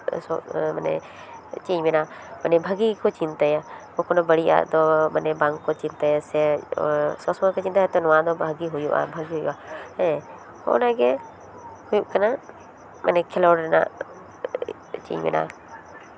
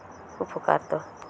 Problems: none marked